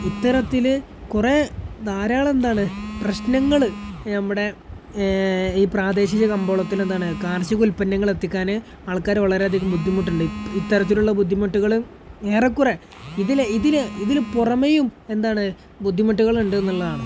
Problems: background sounds at intervals